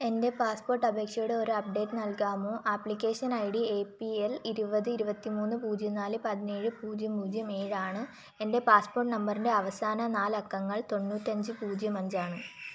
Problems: background sounds at intervals